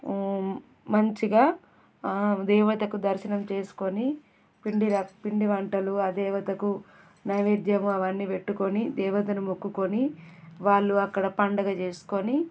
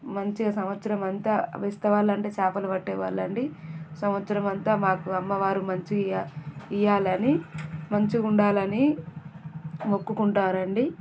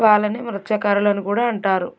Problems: background sounds at intervals